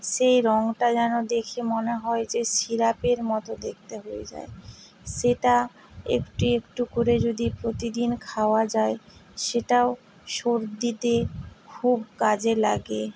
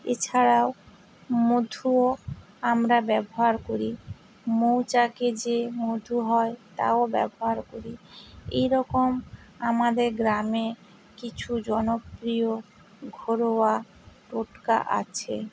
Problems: none marked